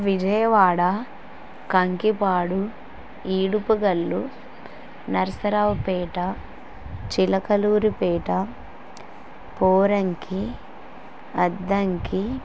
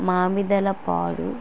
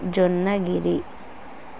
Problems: constant background noise